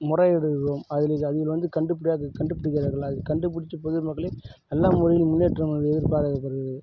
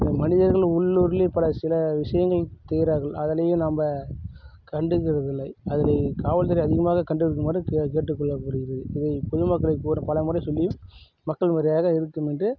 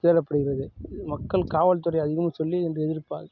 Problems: none marked